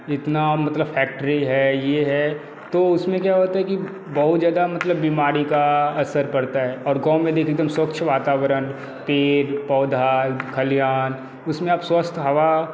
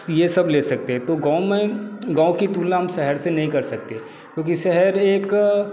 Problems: none marked